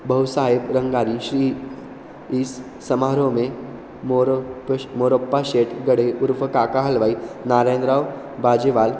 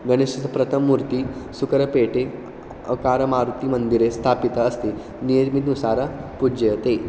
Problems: constant background noise